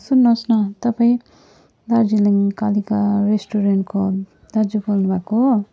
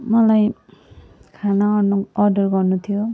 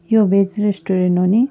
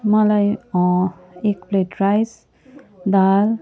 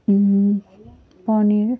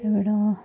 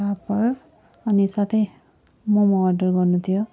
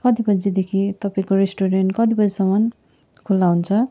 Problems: none marked